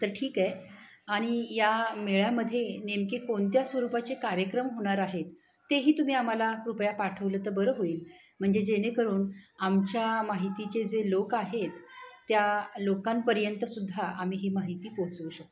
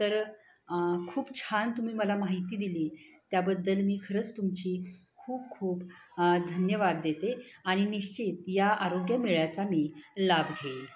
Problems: background sounds at intervals, continuous background conversations